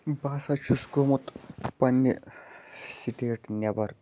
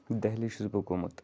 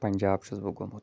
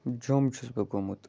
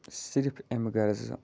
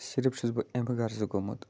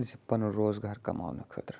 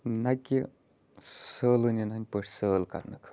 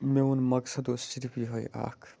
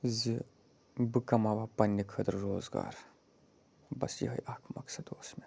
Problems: background sounds at intervals, low volume